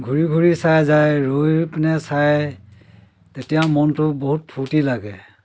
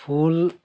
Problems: constant background noise, background conversations at intervals